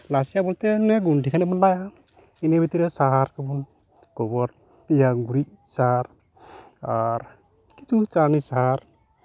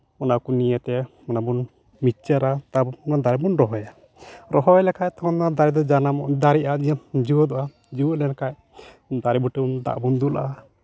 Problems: background sounds at intervals